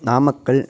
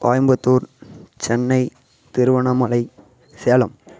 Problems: constant background noise